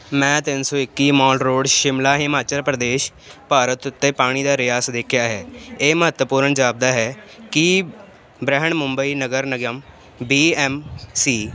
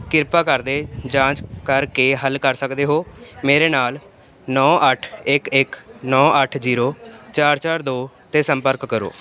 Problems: constant background noise